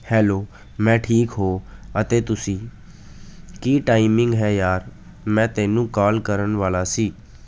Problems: none marked